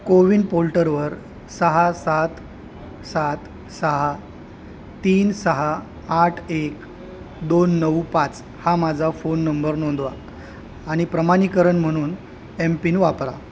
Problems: constant background noise